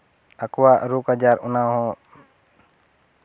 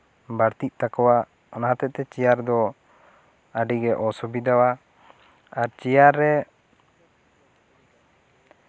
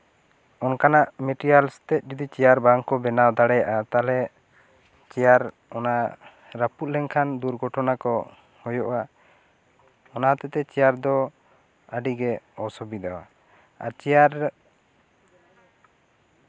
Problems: none marked